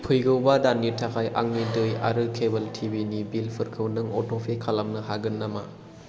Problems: constant background noise